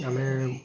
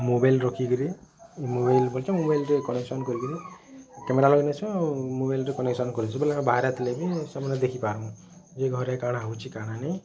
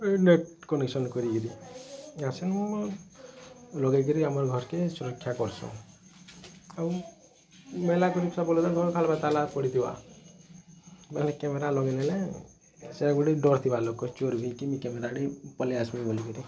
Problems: none marked